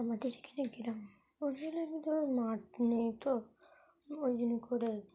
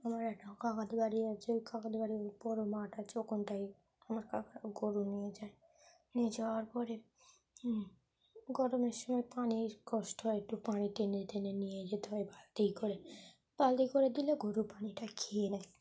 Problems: constant background noise